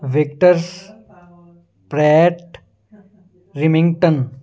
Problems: background sounds at intervals